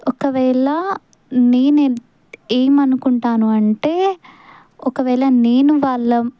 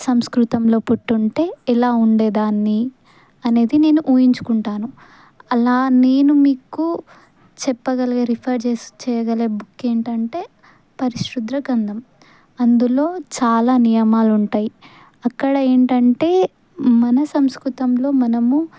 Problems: none marked